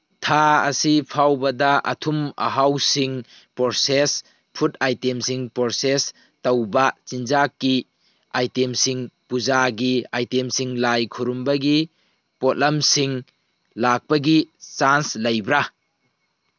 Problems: background sounds at intervals